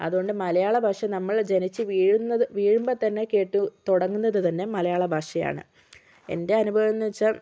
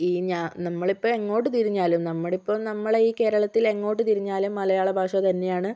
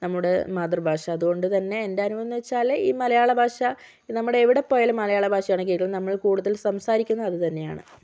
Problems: none marked